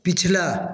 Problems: constant background noise, echo